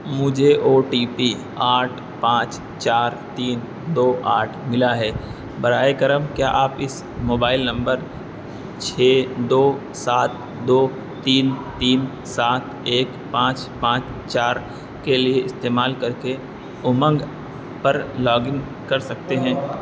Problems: constant background noise, background conversations at intervals